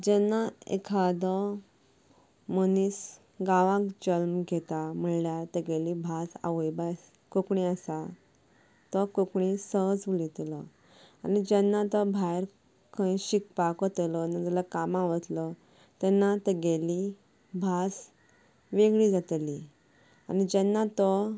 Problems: background sounds at intervals, low volume